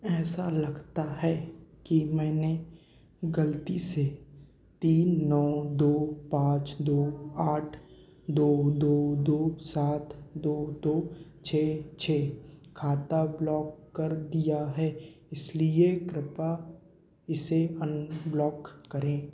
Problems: constant background noise, echo